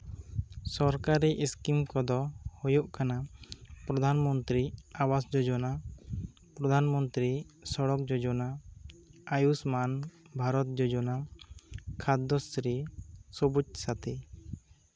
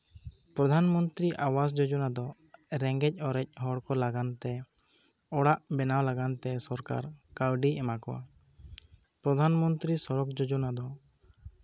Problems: none marked